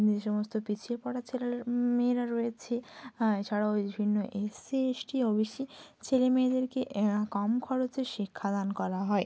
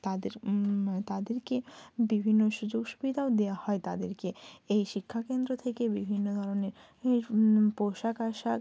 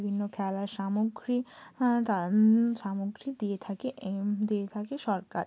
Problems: constant background noise, low volume